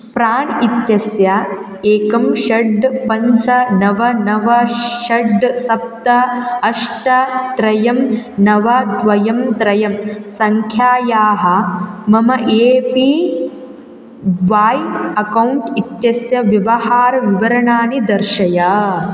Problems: constant background noise